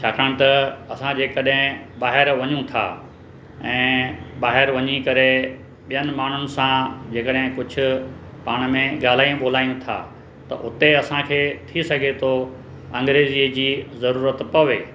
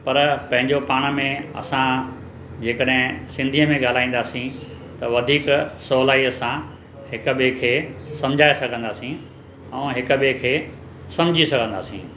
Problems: constant background noise